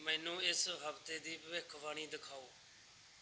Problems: background sounds at intervals